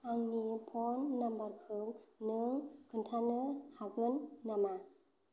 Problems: none marked